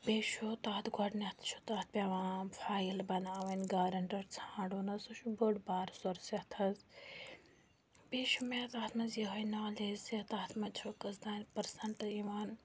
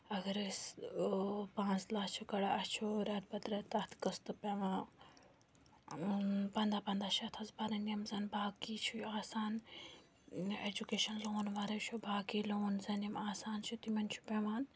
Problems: none marked